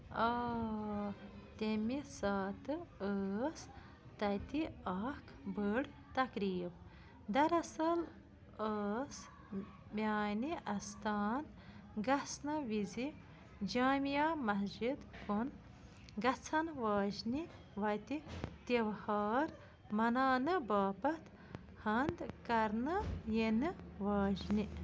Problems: none marked